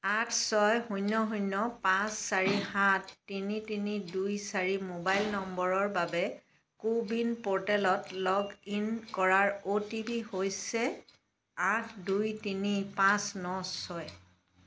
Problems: background sounds at intervals